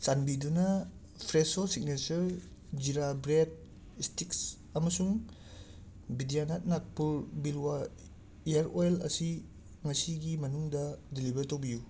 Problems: none marked